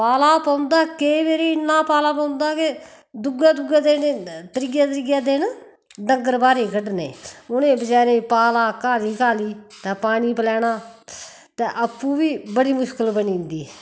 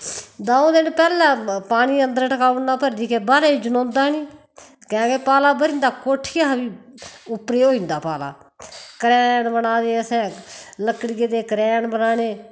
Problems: constant background noise